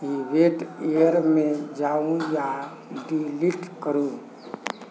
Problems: none marked